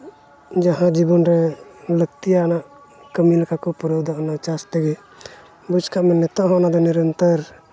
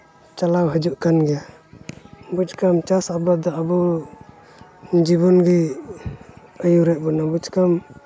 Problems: none marked